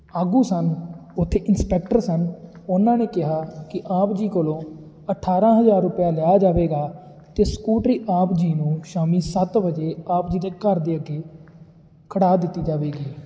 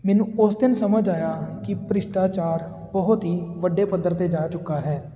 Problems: constant background noise